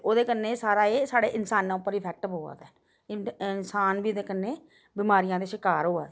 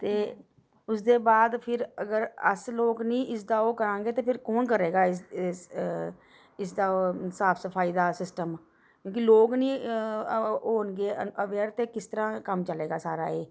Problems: background sounds at intervals